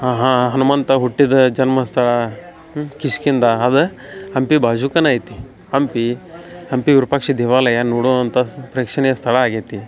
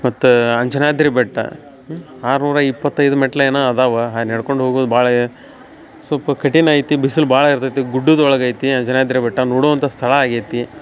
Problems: none marked